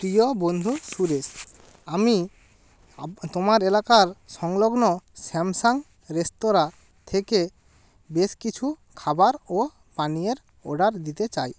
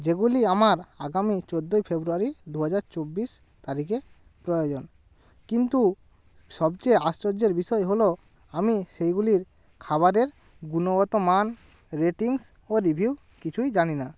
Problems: constant background noise